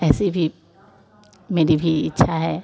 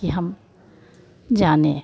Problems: constant background noise